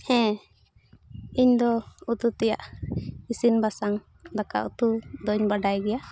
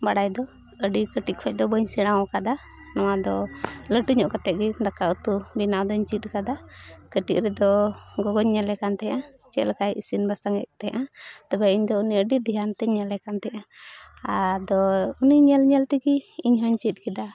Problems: background conversations at intervals